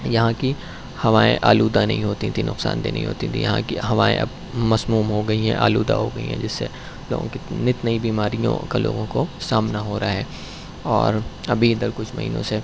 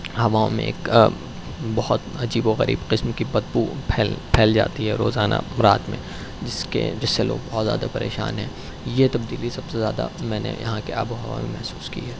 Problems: none marked